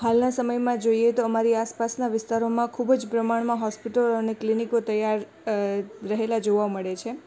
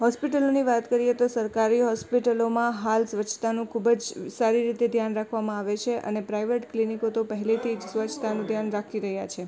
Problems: background conversations at intervals